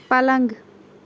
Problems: background sounds at intervals